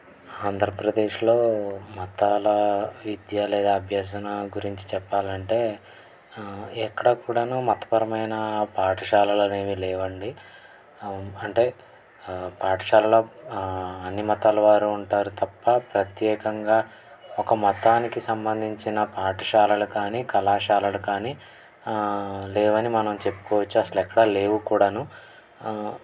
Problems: none marked